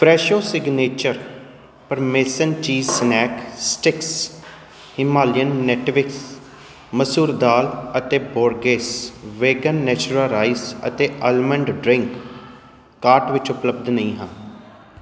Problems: background sounds at intervals